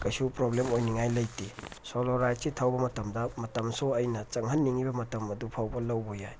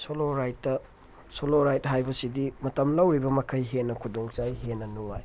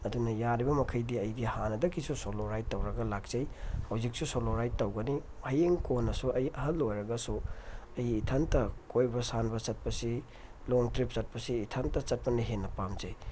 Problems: background sounds at intervals